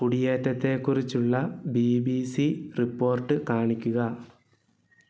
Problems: background sounds at intervals